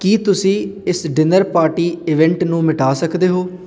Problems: background sounds at intervals